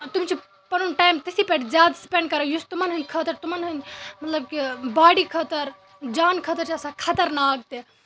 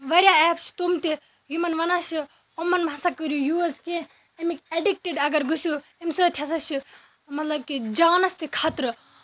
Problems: constant background noise, background conversations at intervals